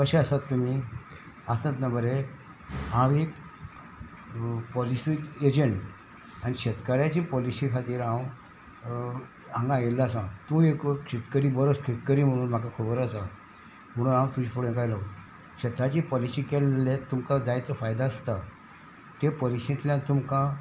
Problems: constant background noise